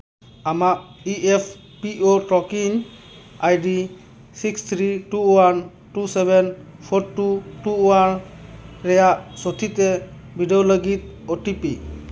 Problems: constant background noise